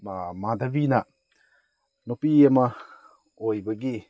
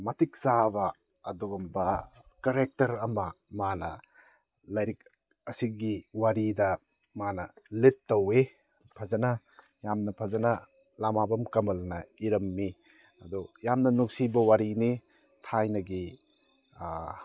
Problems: background sounds at intervals